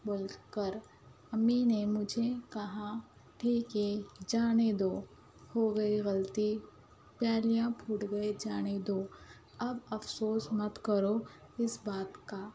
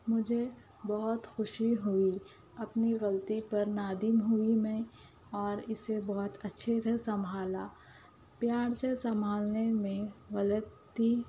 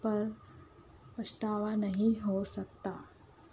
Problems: background sounds at intervals, low volume